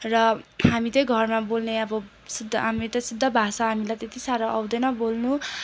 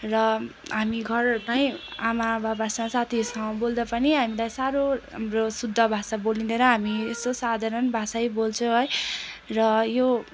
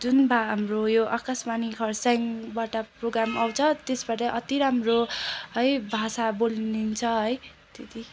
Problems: constant background noise